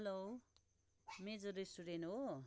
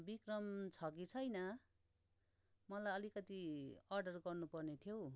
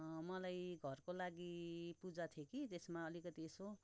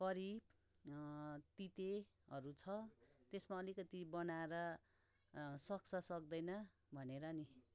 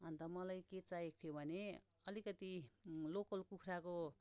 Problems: none marked